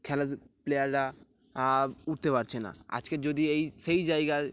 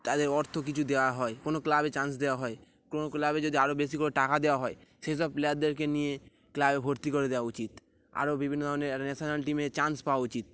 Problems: none marked